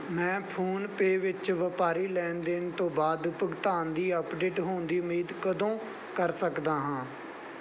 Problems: background sounds at intervals